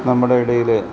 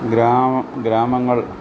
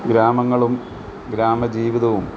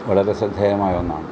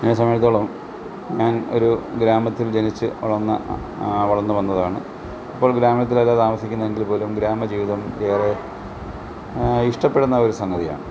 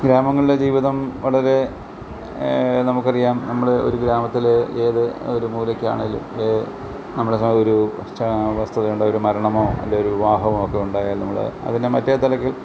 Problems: none marked